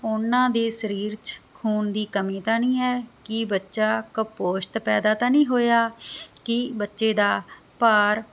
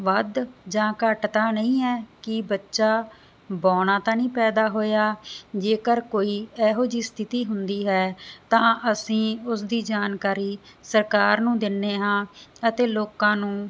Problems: background sounds at intervals